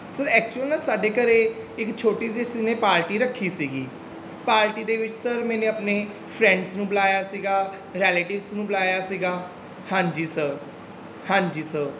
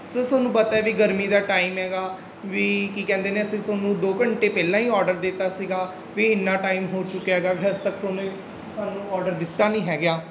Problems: constant background noise